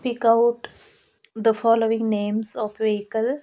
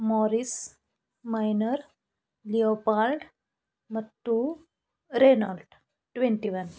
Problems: background sounds at intervals